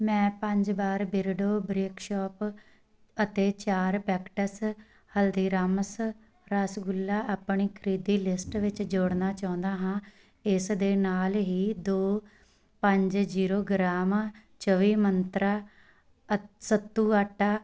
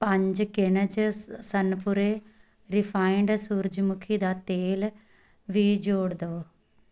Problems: none marked